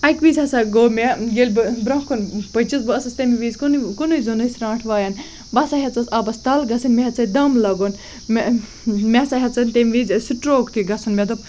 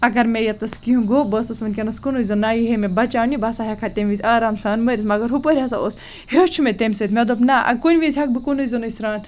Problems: constant background noise